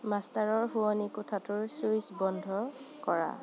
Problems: constant background noise